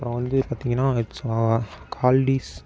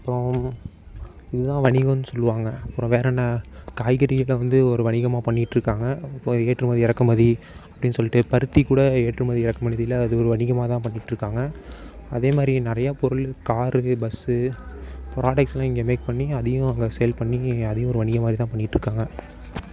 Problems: constant background noise